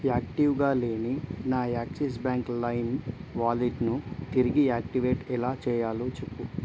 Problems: constant background noise